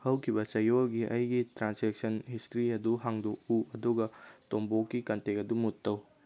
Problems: none marked